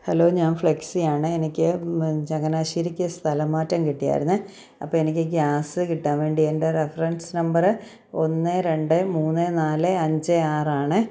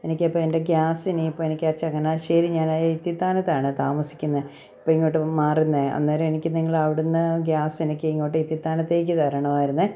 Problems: none marked